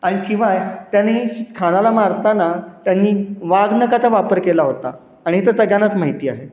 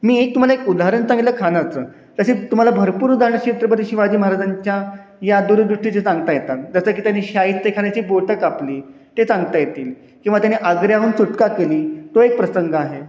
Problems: none marked